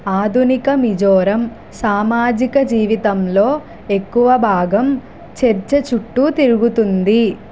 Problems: constant background noise